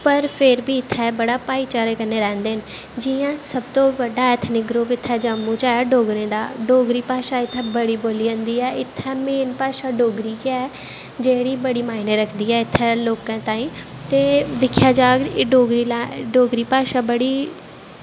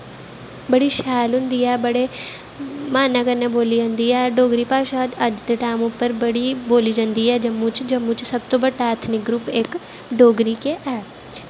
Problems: constant background noise